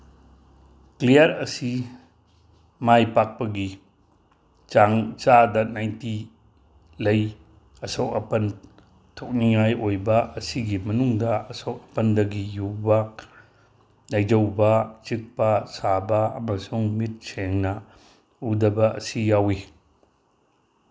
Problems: none marked